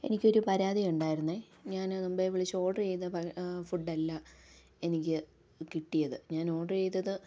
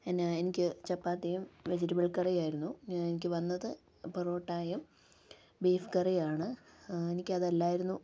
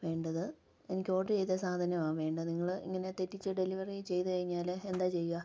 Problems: low volume